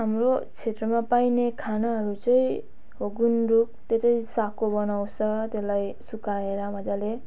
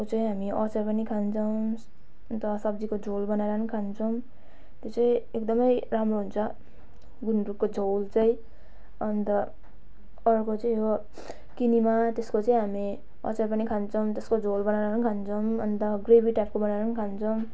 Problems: background sounds at intervals